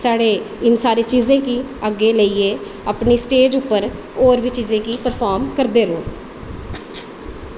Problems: constant background noise, echo